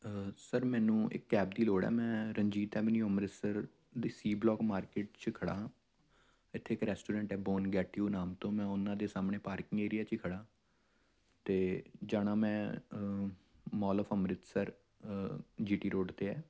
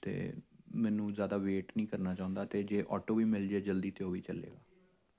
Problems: none marked